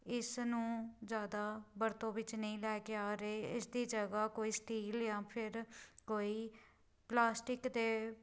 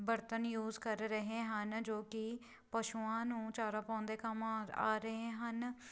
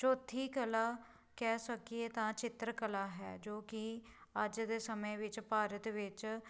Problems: none marked